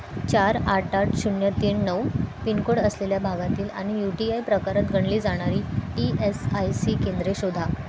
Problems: constant background noise, background conversations at intervals